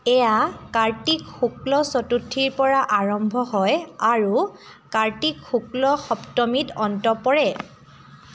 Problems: background sounds at intervals, continuous background conversations